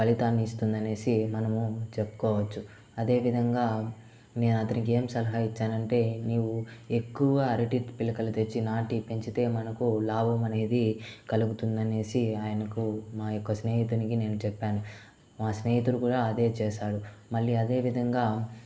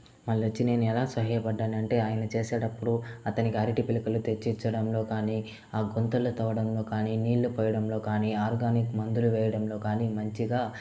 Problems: constant background noise